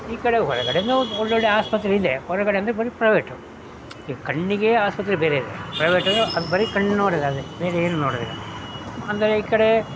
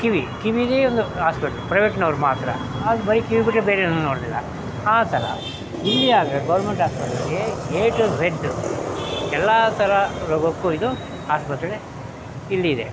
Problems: constant background noise